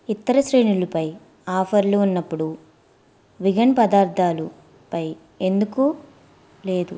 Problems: constant background noise